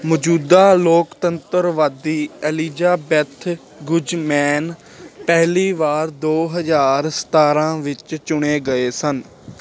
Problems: constant background noise